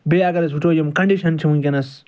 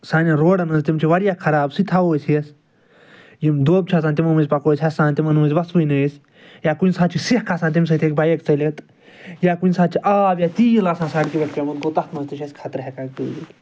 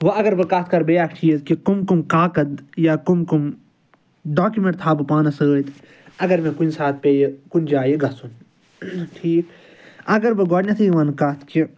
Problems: none marked